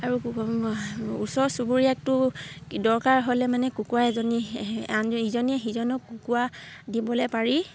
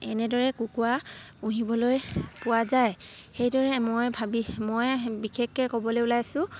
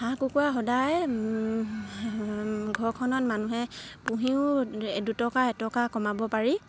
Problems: background sounds at intervals